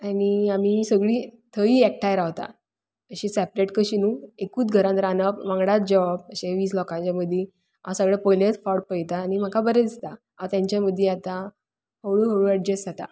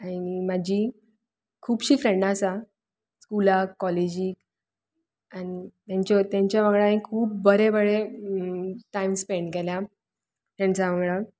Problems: none marked